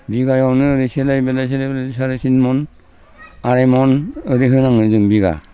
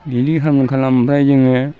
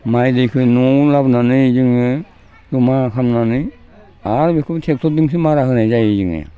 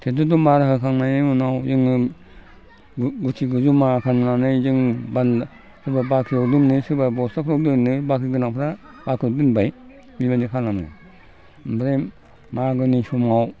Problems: low volume